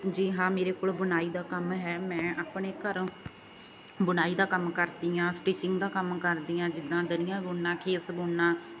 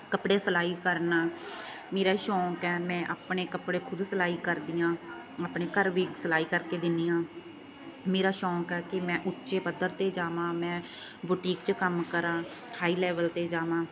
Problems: background sounds at intervals